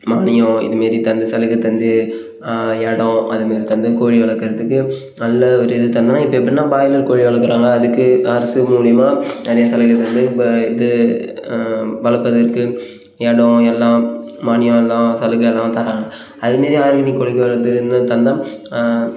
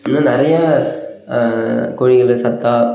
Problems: background sounds at intervals